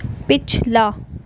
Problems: none marked